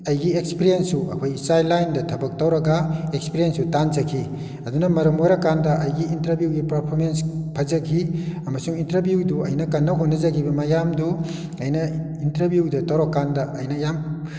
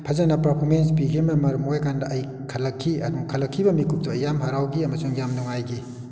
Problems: background sounds at intervals